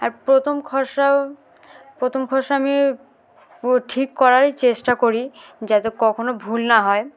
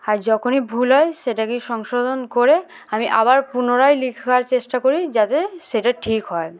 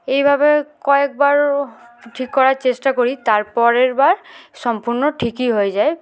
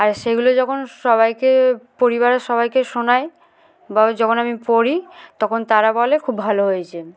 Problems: background sounds at intervals